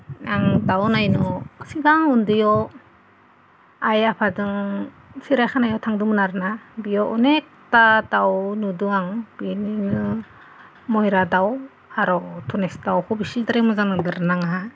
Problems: none marked